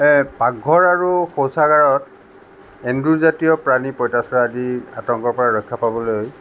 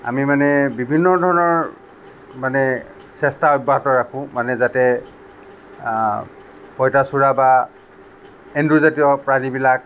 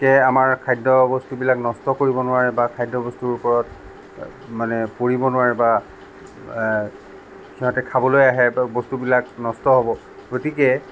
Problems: none marked